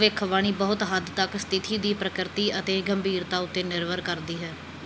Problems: background sounds at intervals